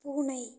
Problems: low volume